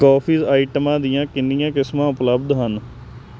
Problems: constant background noise